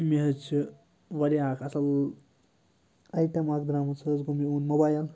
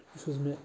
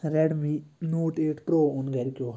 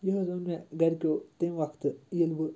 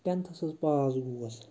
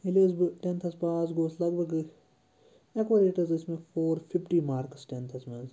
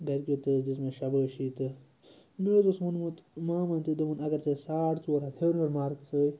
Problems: constant background noise